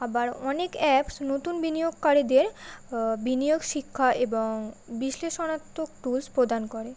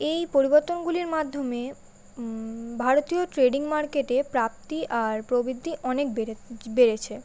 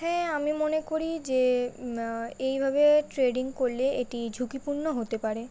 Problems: none marked